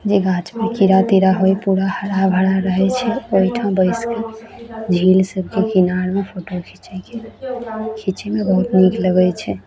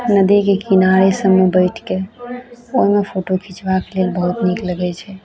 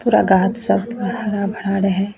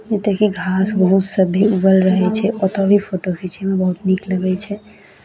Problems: background sounds at intervals